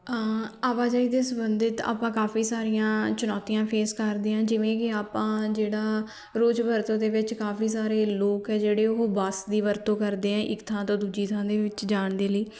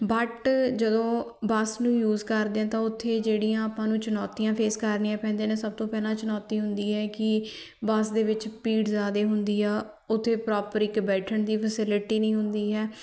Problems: continuous background conversations